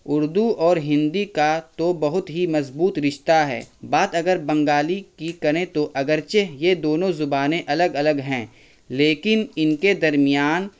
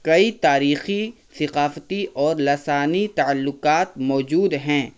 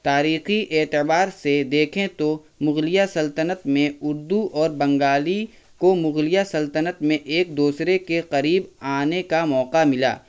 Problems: constant background noise